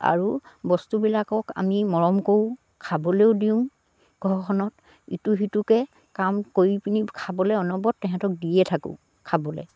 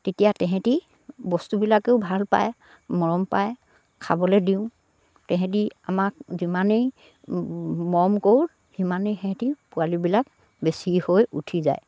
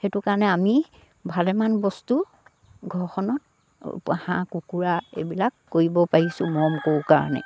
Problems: none marked